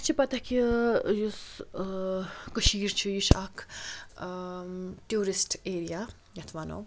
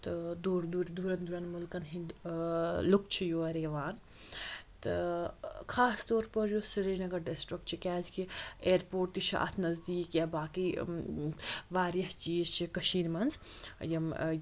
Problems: constant background noise